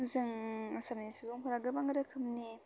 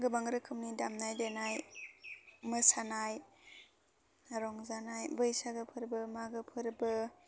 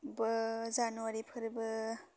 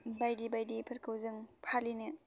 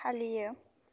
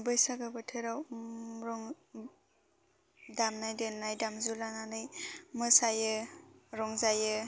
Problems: constant background noise